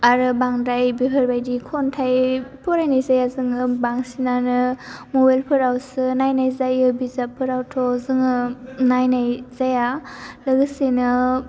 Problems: low volume